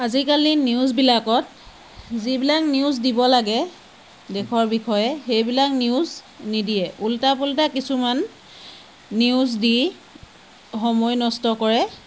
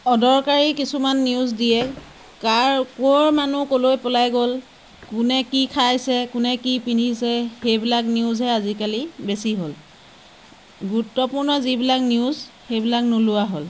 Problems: constant background noise